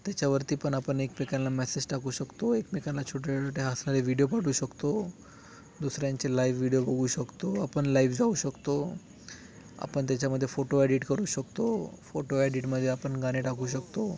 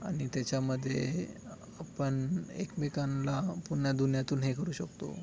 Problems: background sounds at intervals